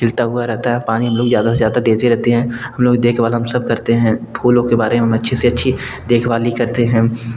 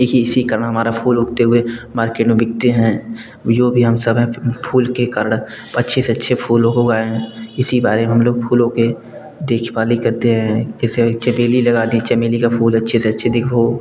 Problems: constant background noise, background conversations at intervals